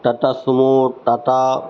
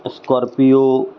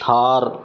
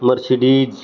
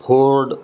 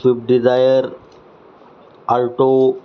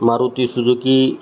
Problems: background sounds at intervals